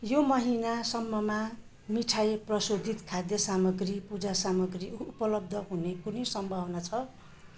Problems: none marked